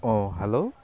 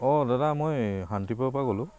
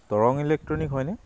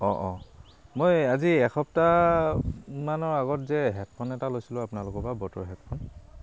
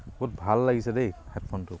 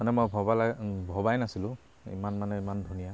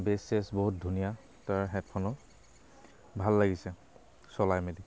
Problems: constant background noise